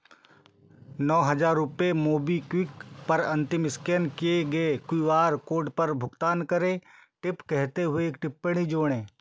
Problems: background sounds at intervals